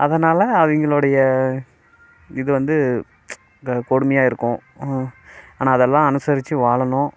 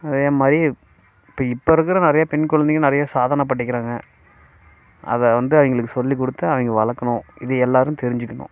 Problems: constant background noise